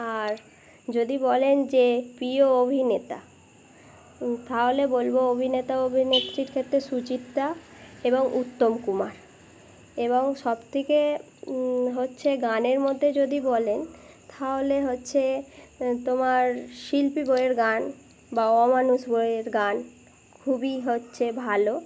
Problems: constant background noise